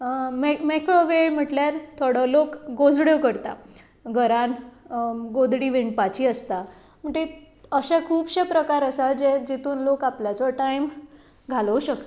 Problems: none marked